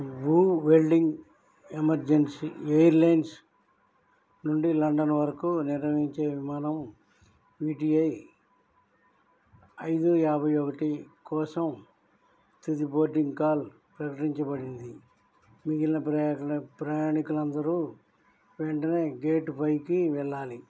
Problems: none marked